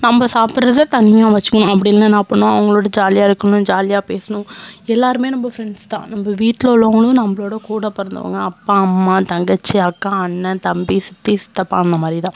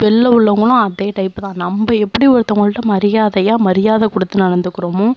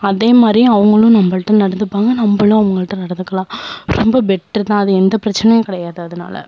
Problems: none marked